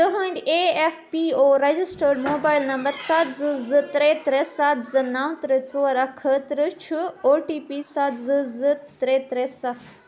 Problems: constant background noise, continuous background conversations